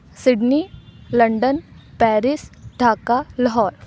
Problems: none marked